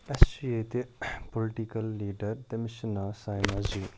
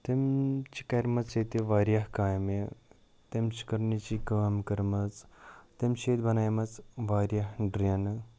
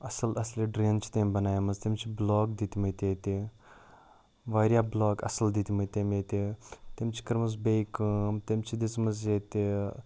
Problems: none marked